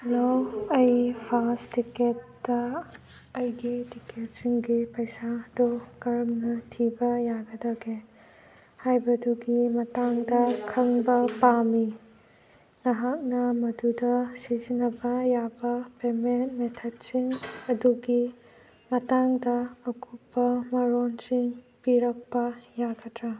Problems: constant background noise